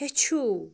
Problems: constant background noise